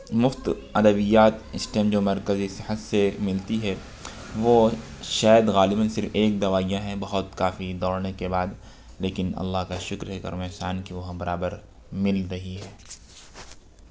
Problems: constant background noise, background conversations at intervals